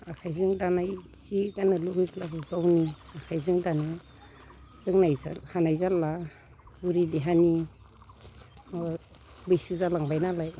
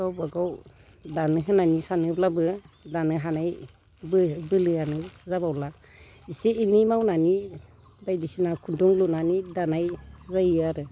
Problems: background conversations at intervals, low volume